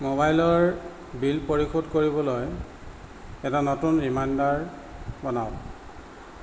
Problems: constant background noise